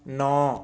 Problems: background sounds at intervals